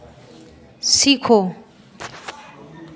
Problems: continuous background conversations